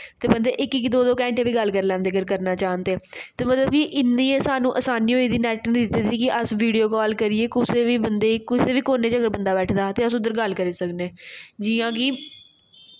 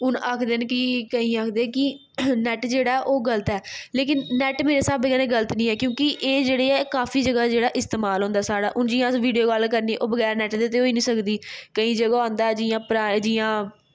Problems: none marked